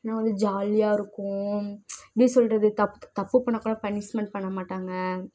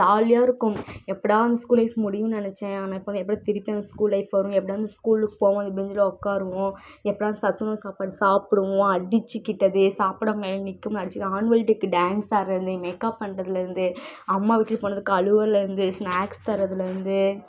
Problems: background sounds at intervals